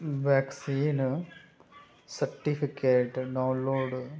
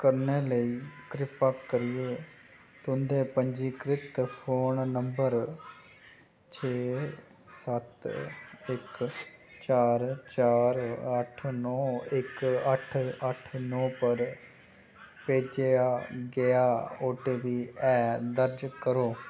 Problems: none marked